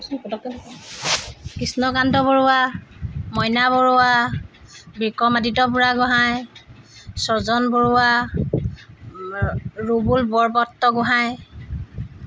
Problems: constant background noise